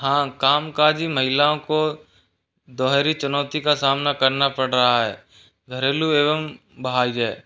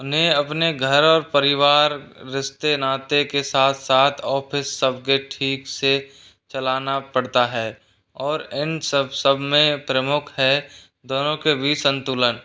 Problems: background sounds at intervals